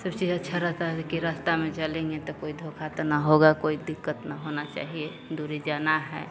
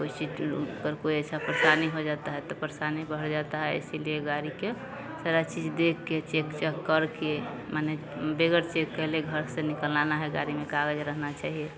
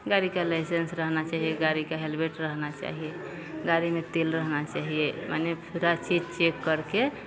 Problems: none marked